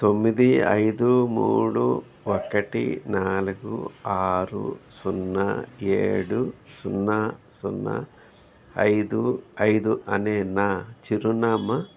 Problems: none marked